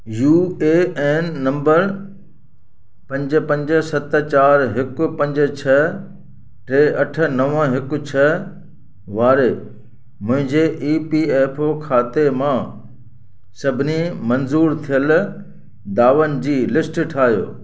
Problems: constant background noise, echo